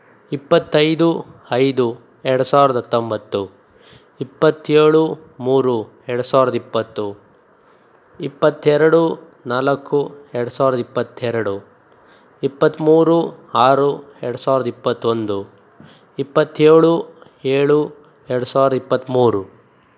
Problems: none marked